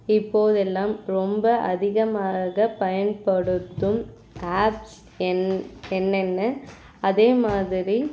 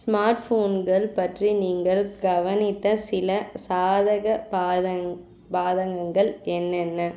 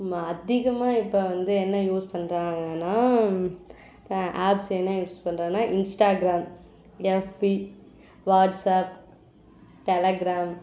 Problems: none marked